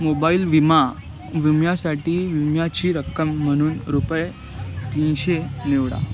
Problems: constant background noise, continuous background conversations